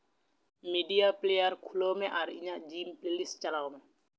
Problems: background sounds at intervals